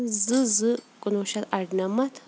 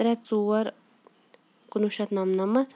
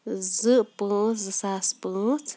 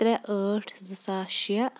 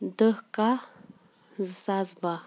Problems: background sounds at intervals